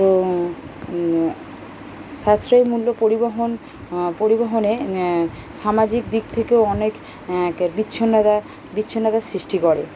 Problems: constant background noise